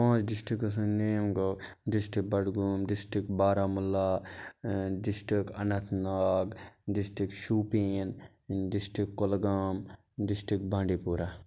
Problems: background sounds at intervals